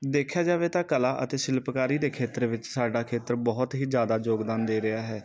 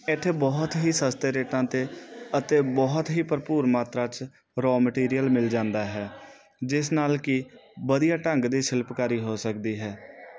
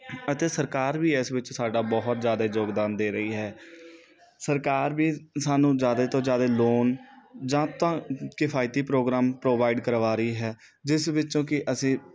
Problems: background sounds at intervals